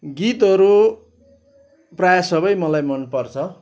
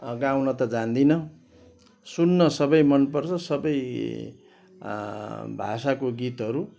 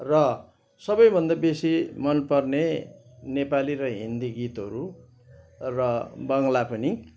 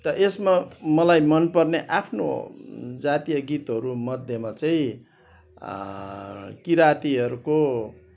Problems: constant background noise